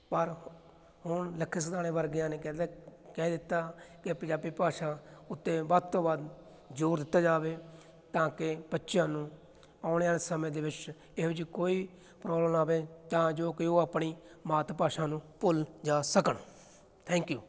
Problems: background sounds at intervals